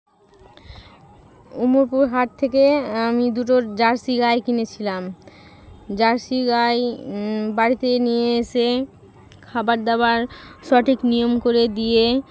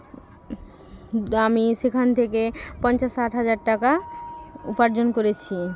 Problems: none marked